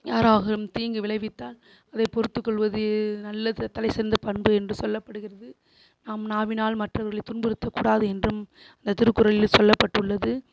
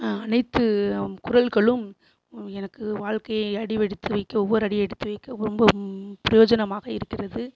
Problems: constant background noise